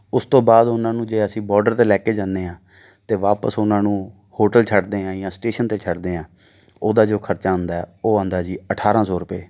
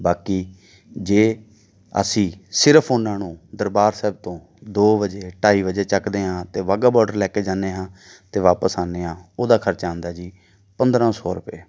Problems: none marked